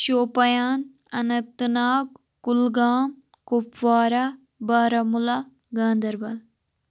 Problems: none marked